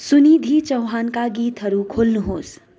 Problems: none marked